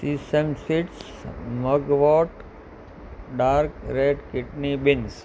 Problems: constant background noise